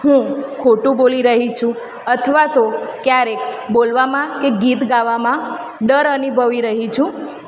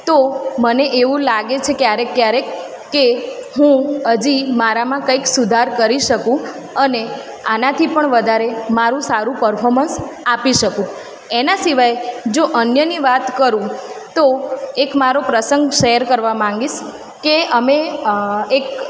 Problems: constant background noise, echo